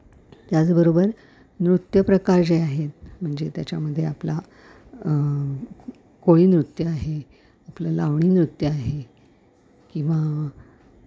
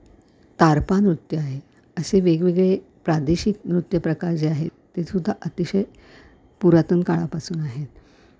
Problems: background sounds at intervals